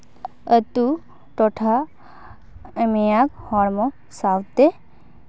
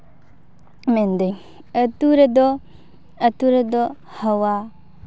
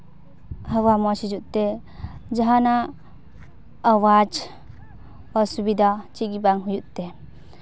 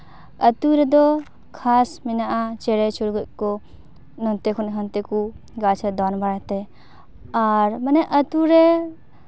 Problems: background sounds at intervals